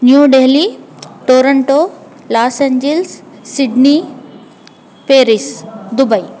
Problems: none marked